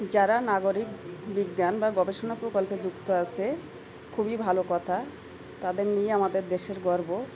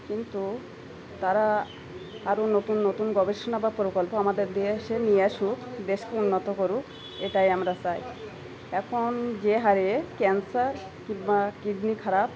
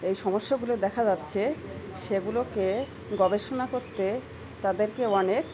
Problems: background sounds at intervals